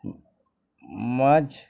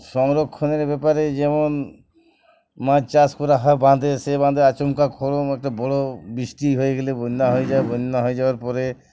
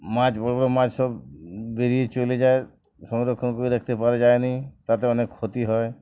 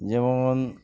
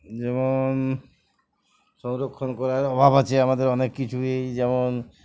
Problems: background sounds at intervals